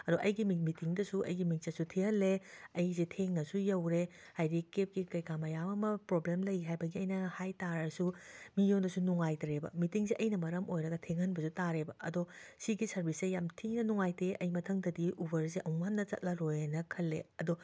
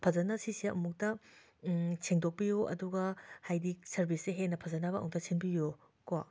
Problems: background sounds at intervals